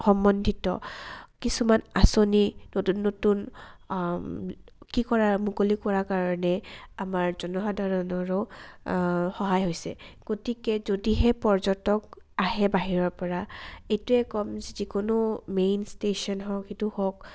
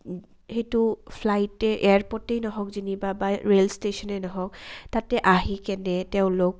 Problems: low volume